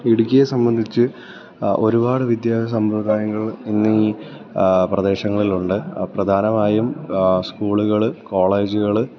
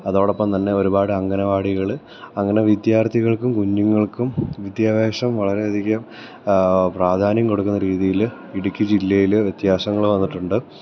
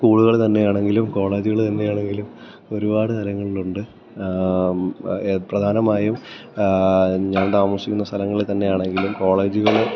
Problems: none marked